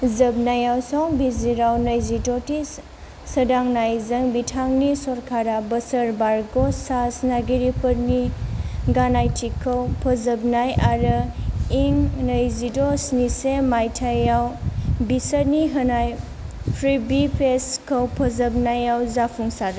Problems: none marked